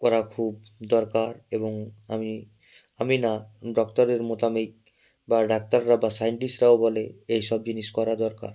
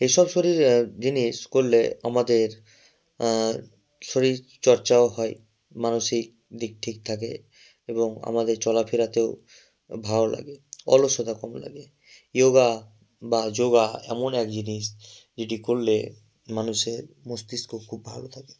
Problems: none marked